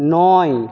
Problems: none marked